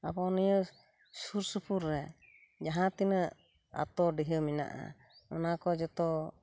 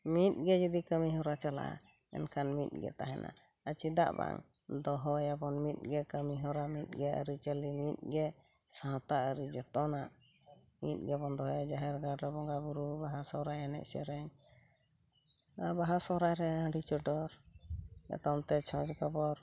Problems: none marked